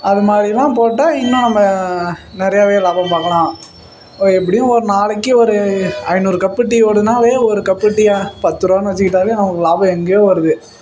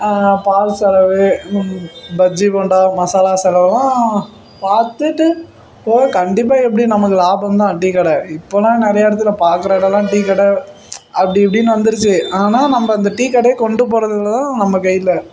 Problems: background sounds at intervals